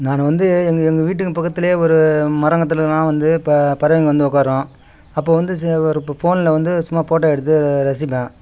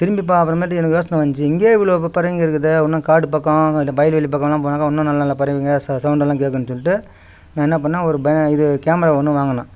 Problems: none marked